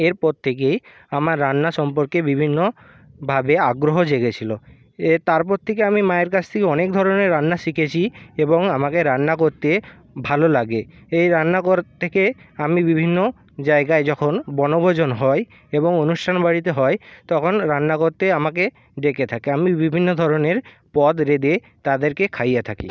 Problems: constant background noise